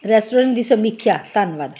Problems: constant background noise